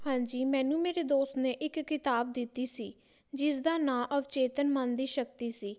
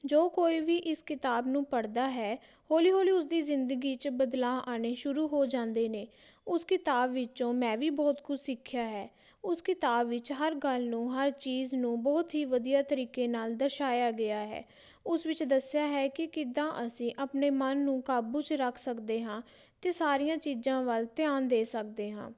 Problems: background sounds at intervals